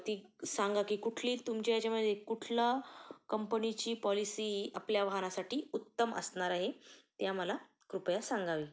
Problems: constant background noise